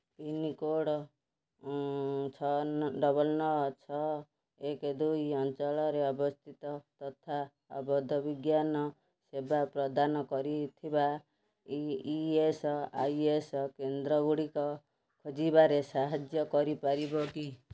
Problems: none marked